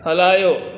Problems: constant background noise, echo